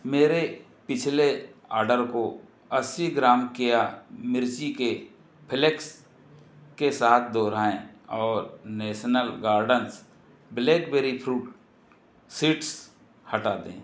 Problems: background sounds at intervals